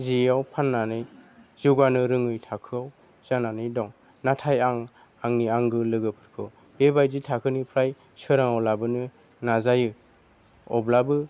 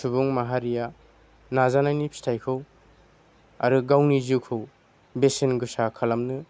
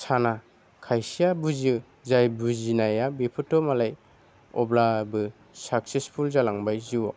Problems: none marked